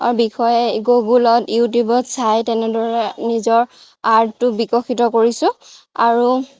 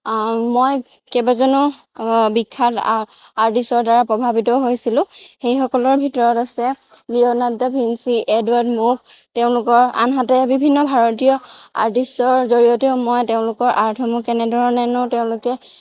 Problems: none marked